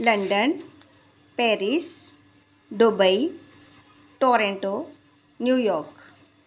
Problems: constant background noise, echo